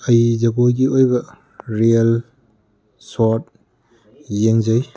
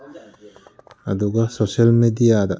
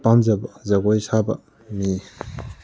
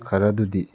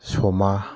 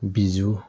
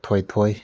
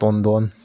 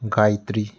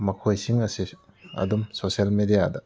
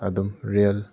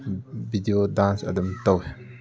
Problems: background conversations at intervals